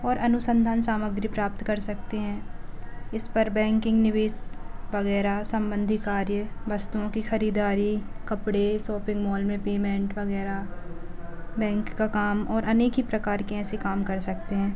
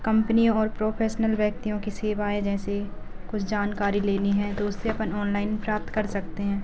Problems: low volume